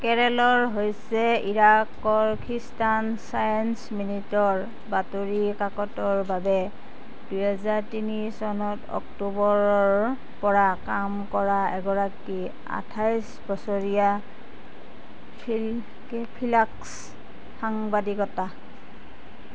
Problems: constant background noise